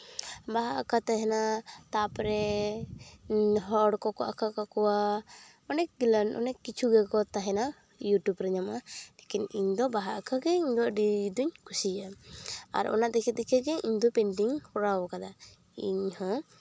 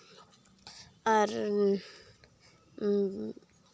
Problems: background sounds at intervals